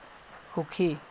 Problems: constant background noise